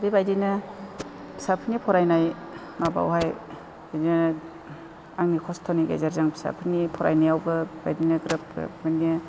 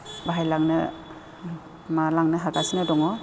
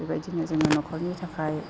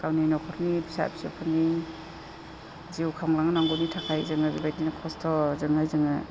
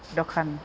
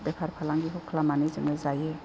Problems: constant background noise